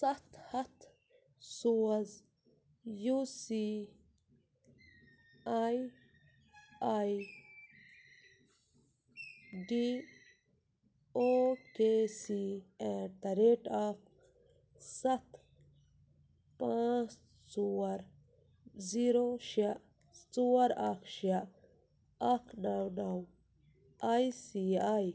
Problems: low volume